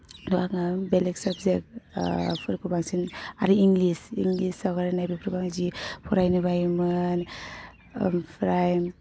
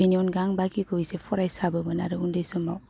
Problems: none marked